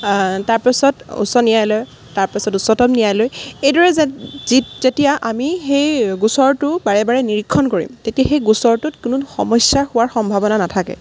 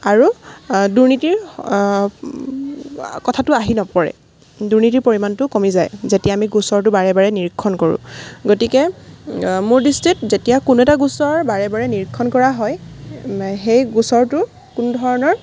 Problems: background sounds at intervals